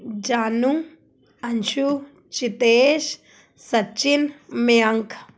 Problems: background sounds at intervals